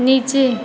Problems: none marked